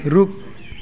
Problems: constant background noise